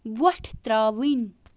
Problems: constant background noise